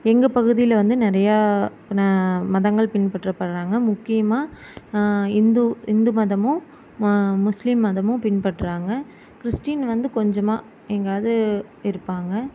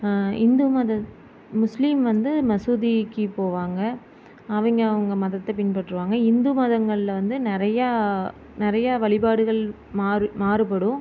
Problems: none marked